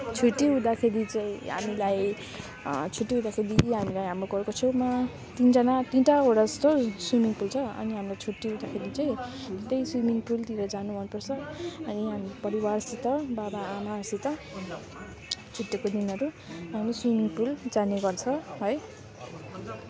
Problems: continuous background conversations